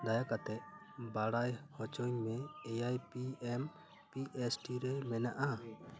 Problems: background conversations at intervals